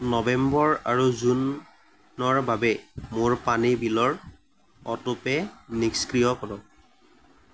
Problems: background sounds at intervals